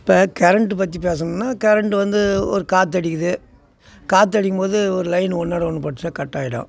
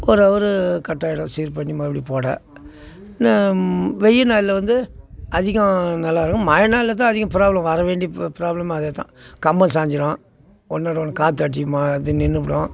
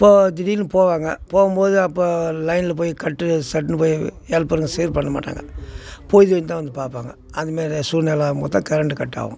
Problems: constant background noise